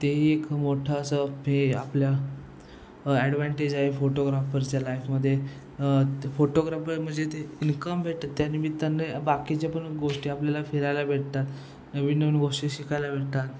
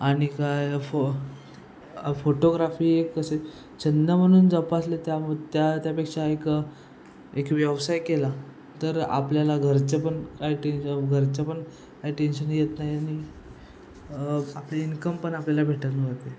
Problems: constant background noise